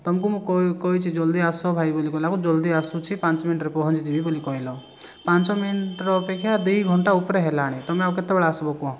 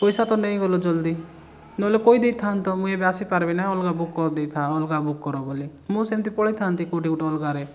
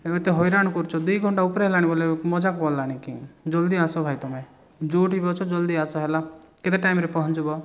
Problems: background sounds at intervals